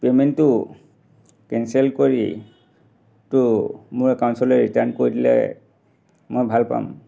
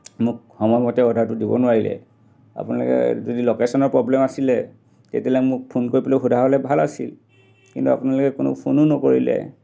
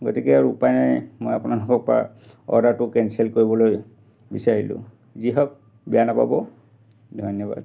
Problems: none marked